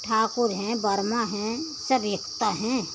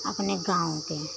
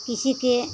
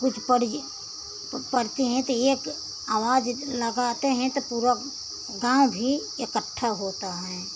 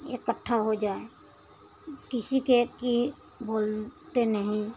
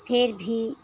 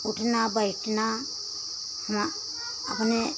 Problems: constant background noise